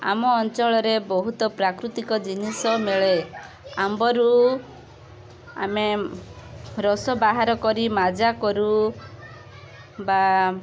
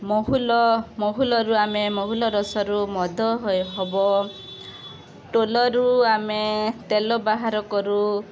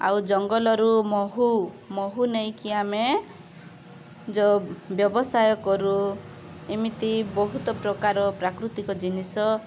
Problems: constant background noise, continuous background conversations